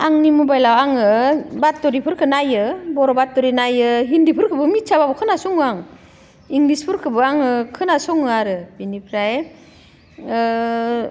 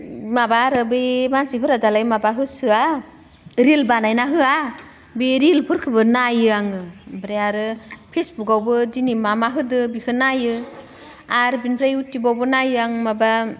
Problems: constant background noise